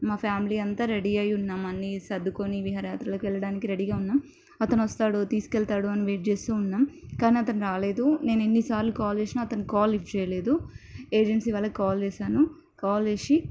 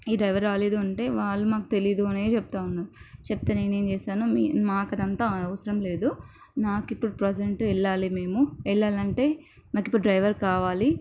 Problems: none marked